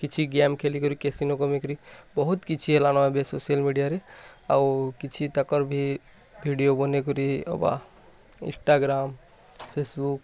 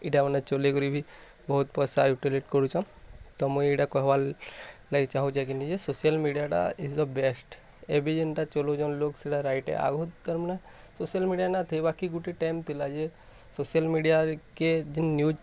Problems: constant background noise, continuous background conversations